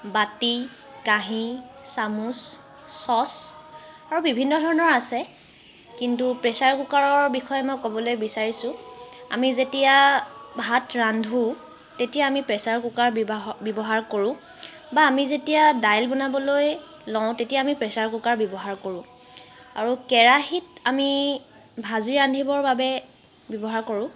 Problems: constant background noise